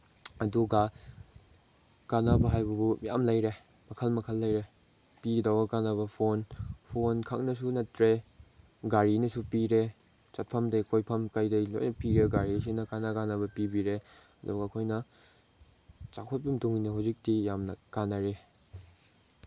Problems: background sounds at intervals